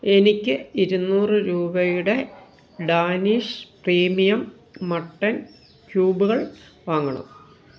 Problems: background sounds at intervals